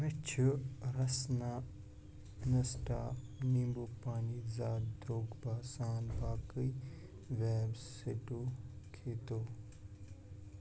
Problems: background sounds at intervals, low volume